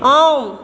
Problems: constant background noise